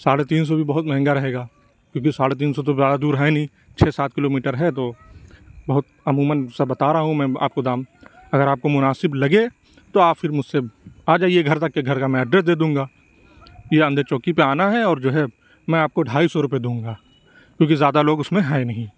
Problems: none marked